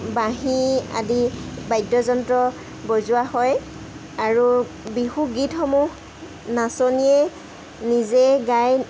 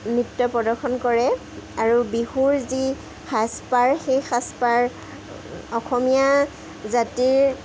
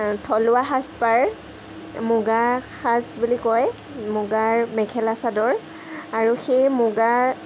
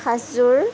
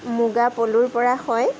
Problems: background sounds at intervals